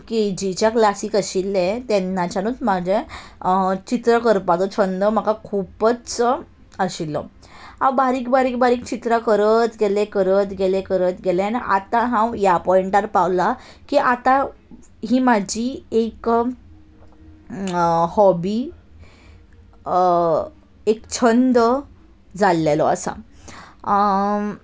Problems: none marked